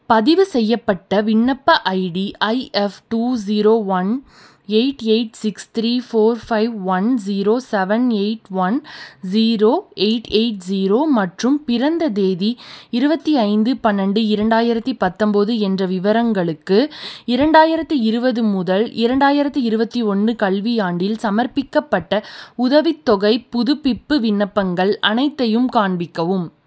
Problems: none marked